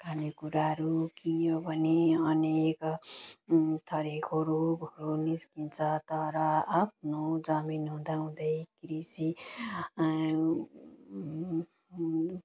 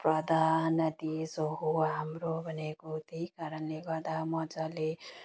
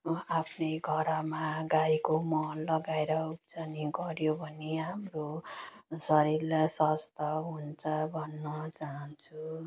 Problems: none marked